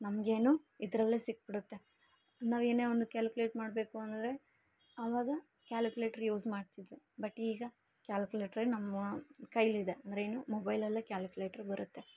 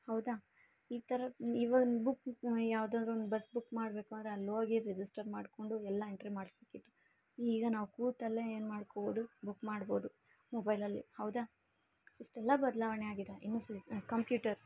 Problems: none marked